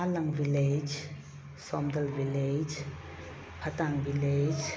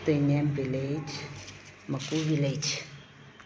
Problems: constant background noise